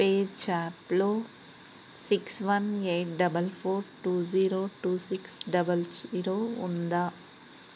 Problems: constant background noise